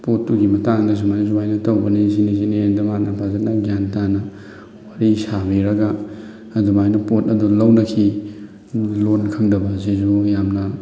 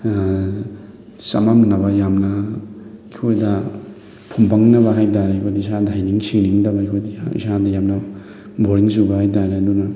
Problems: constant background noise, background conversations at intervals